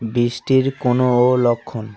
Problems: continuous background conversations